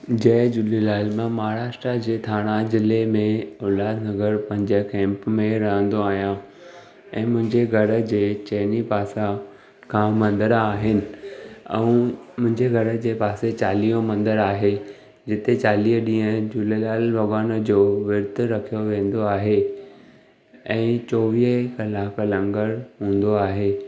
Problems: none marked